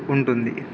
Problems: background sounds at intervals